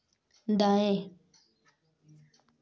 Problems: constant background noise